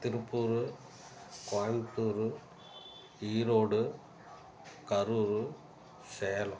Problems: background sounds at intervals